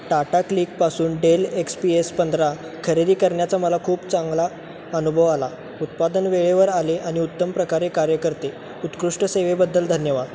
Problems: constant background noise